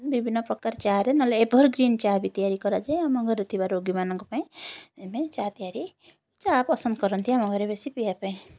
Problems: none marked